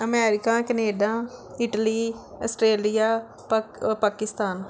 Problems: background sounds at intervals